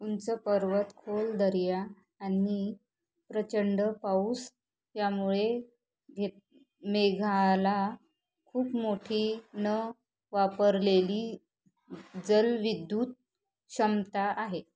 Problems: background conversations at intervals, low volume